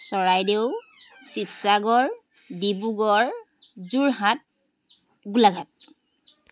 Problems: constant background noise